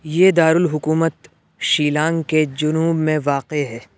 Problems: none marked